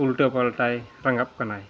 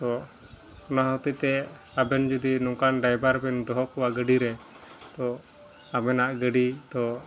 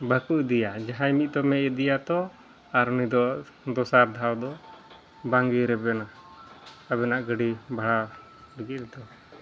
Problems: background sounds at intervals, background conversations at intervals